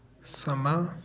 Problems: none marked